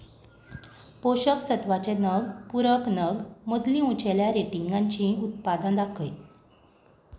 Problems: background sounds at intervals